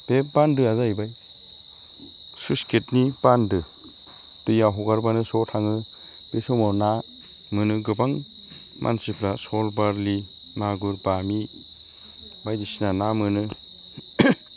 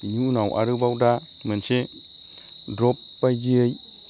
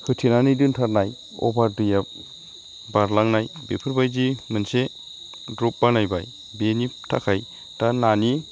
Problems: constant background noise